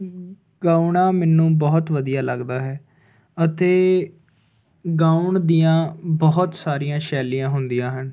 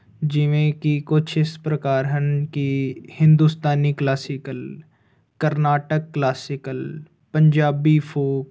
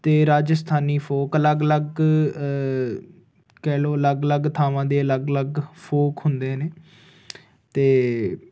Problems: constant background noise